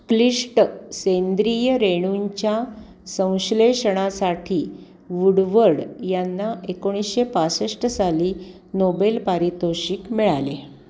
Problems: none marked